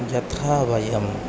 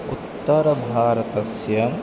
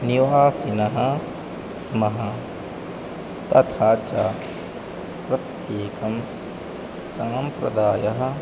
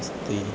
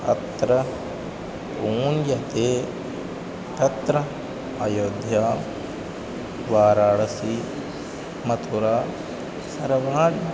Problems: none marked